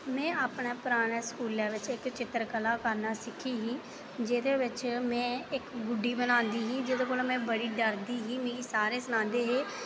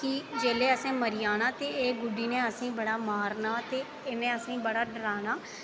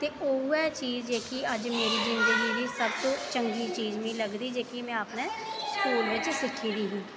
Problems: background sounds at intervals